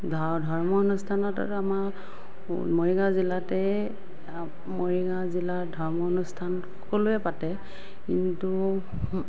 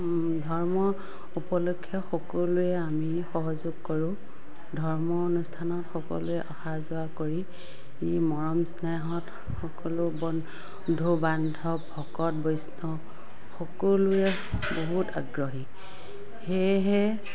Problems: background sounds at intervals, background conversations at intervals